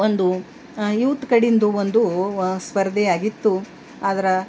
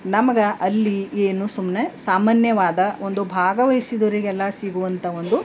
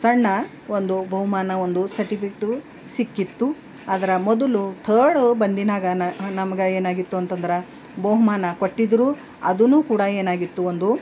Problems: none marked